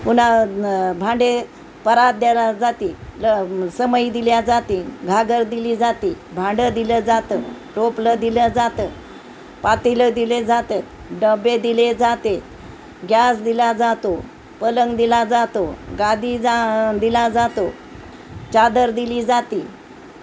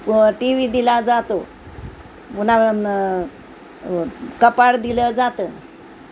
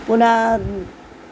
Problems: constant background noise